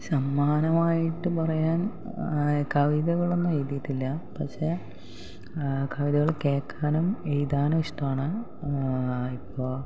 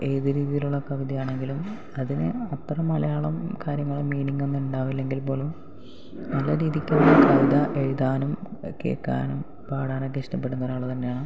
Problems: background sounds at intervals, low volume